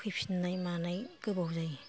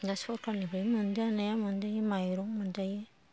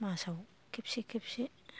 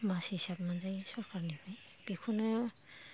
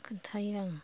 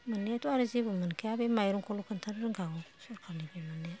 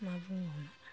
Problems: background sounds at intervals, low volume